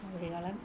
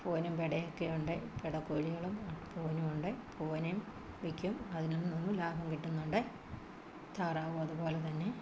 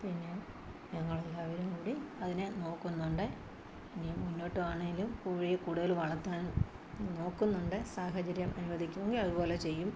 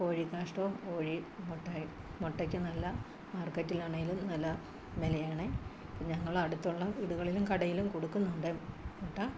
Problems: constant background noise, background conversations at intervals, low volume